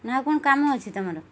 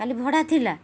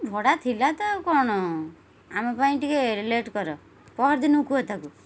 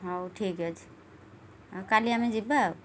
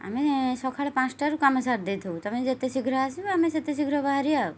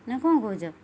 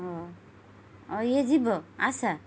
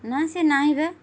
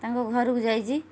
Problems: none marked